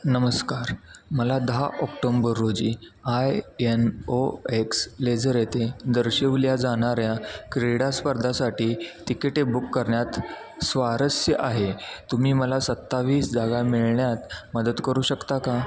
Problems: constant background noise, background conversations at intervals